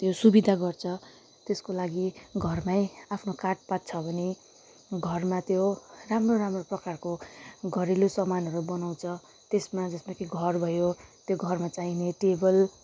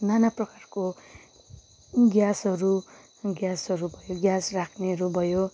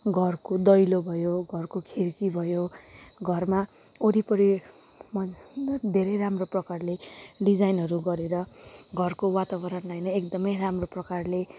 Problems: none marked